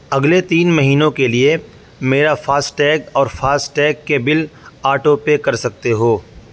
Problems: background sounds at intervals